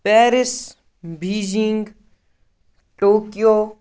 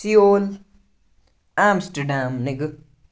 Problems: none marked